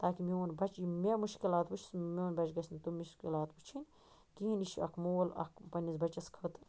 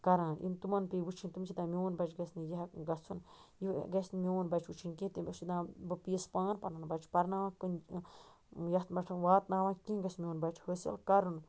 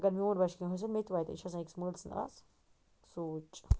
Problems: none marked